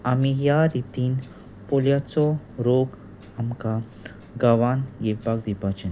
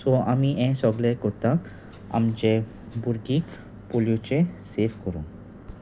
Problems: constant background noise